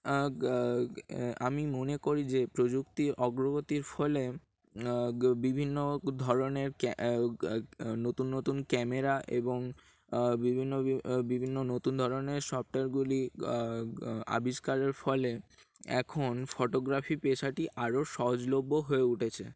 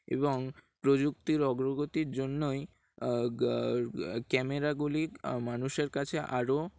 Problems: background sounds at intervals